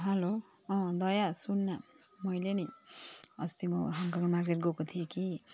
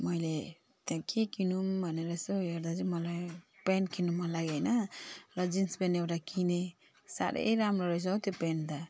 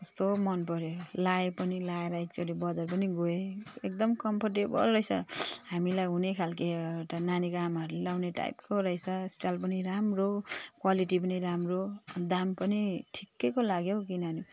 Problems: none marked